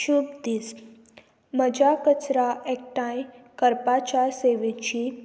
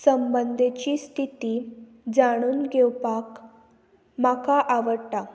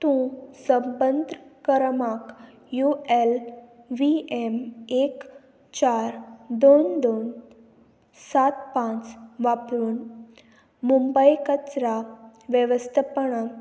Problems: constant background noise